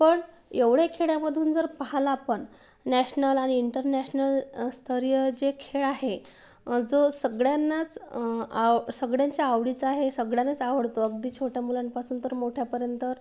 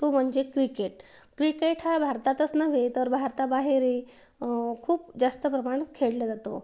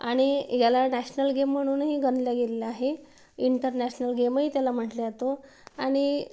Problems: background sounds at intervals